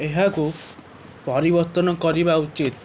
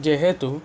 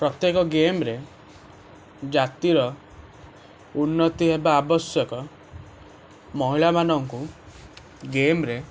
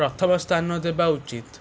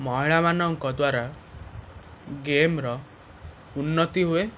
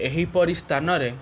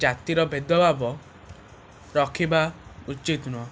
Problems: constant background noise